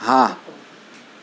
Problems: none marked